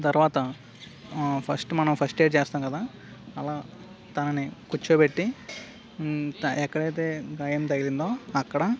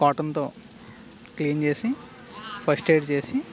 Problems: background sounds at intervals